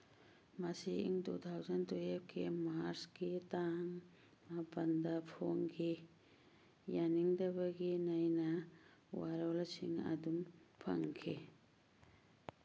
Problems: background sounds at intervals